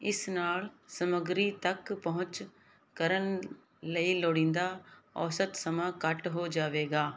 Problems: background sounds at intervals